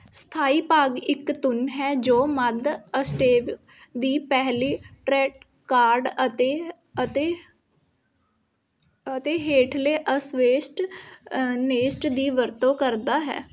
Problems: none marked